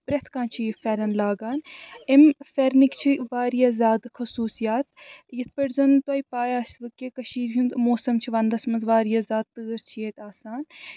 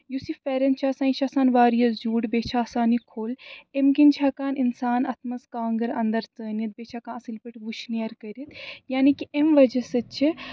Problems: background sounds at intervals